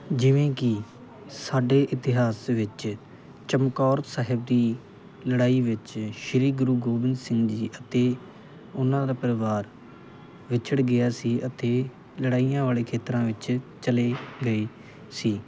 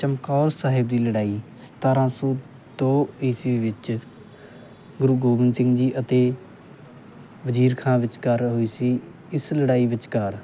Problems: none marked